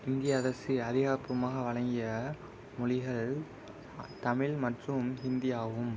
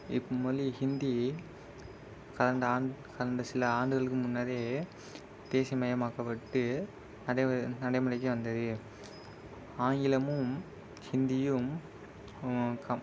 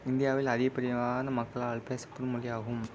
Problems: constant background noise